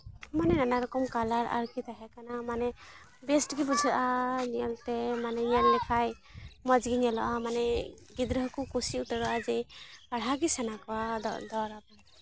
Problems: background sounds at intervals, continuous background conversations